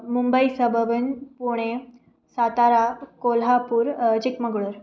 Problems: none marked